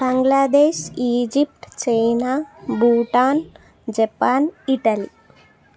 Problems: continuous background conversations